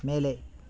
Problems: constant background noise